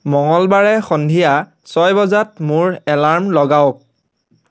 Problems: background sounds at intervals